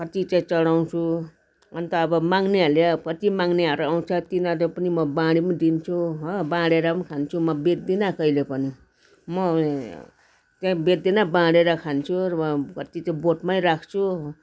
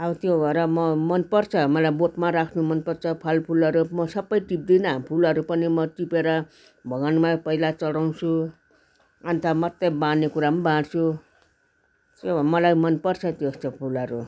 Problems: constant background noise, continuous background conversations